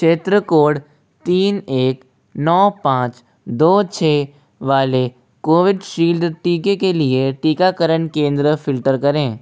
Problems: constant background noise, background conversations at intervals